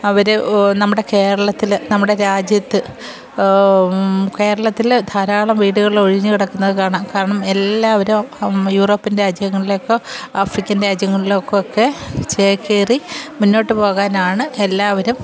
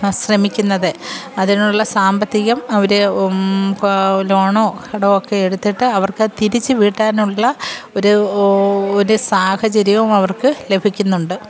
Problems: background sounds at intervals